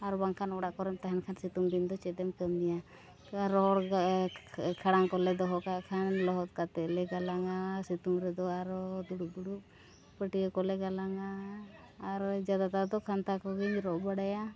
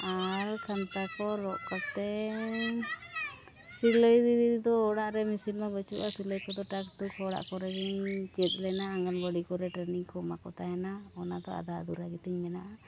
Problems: continuous background conversations, low volume